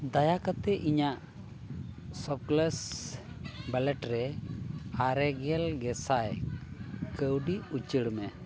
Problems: none marked